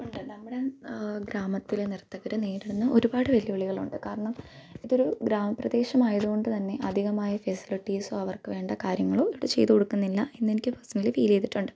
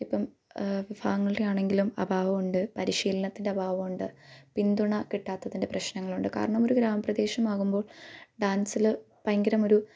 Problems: background sounds at intervals